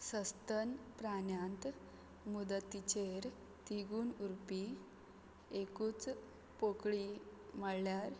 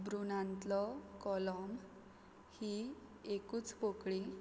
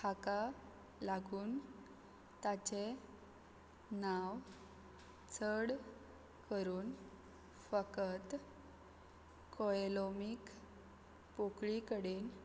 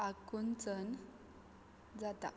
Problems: background sounds at intervals